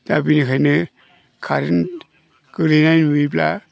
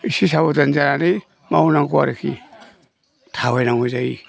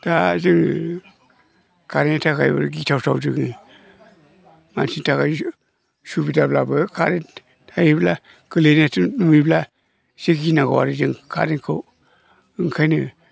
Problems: low volume